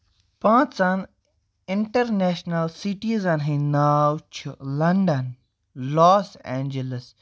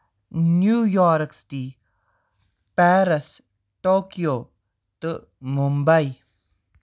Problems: none marked